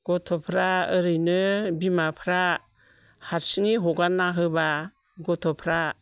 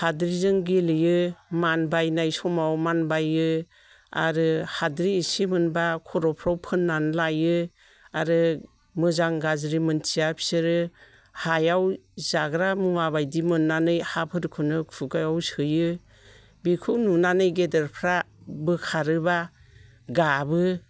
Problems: none marked